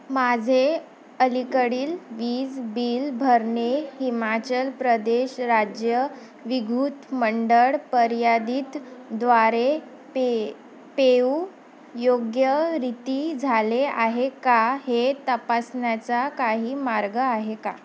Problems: none marked